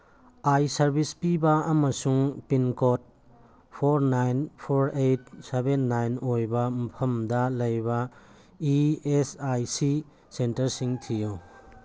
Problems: background sounds at intervals